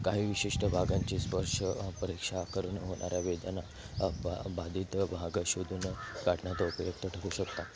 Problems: constant background noise, background conversations at intervals